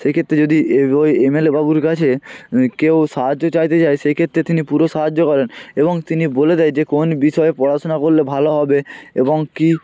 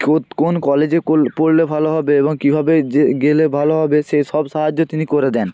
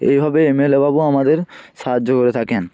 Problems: constant background noise, continuous background conversations